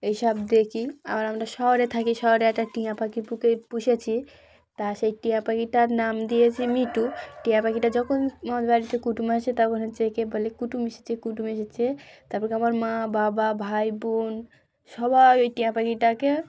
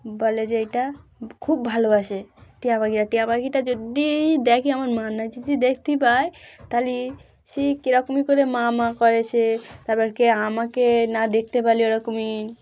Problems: background sounds at intervals